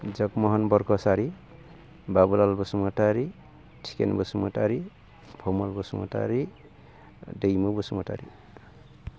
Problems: low volume